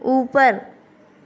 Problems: constant background noise